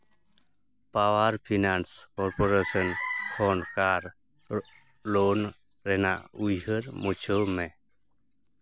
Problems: background sounds at intervals, background conversations at intervals